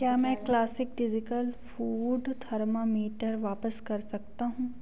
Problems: constant background noise, background conversations at intervals